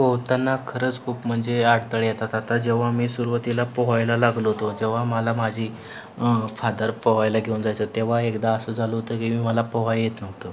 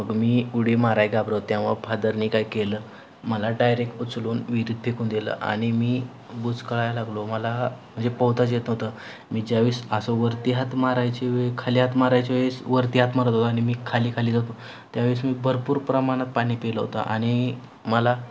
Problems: none marked